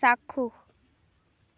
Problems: none marked